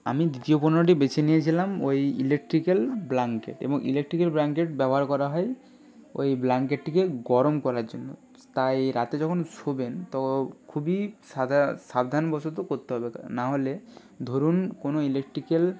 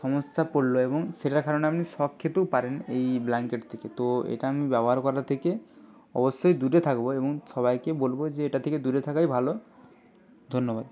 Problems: continuous background conversations